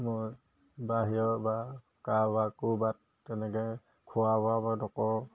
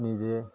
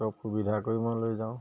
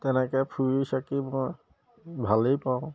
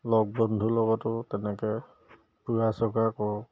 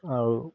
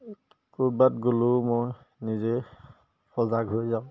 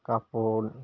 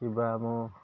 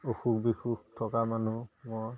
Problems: none marked